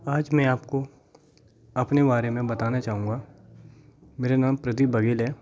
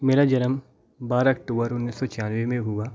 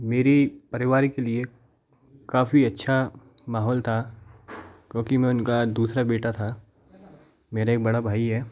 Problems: constant background noise, background conversations at intervals